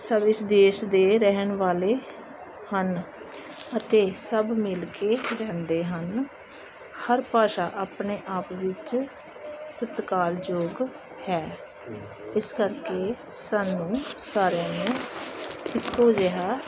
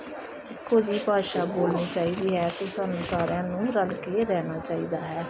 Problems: none marked